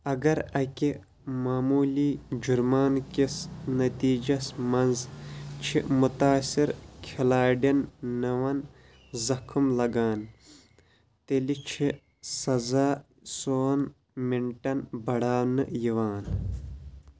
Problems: constant background noise